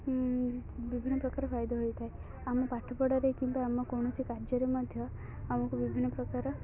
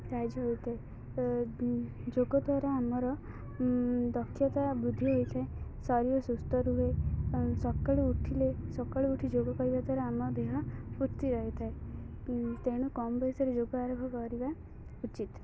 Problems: continuous background conversations, low volume